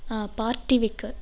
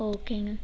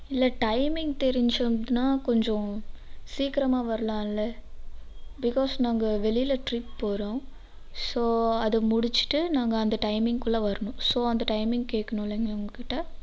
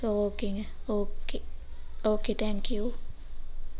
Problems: none marked